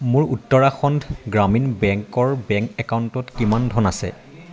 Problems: constant background noise, background conversations at intervals